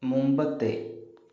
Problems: low volume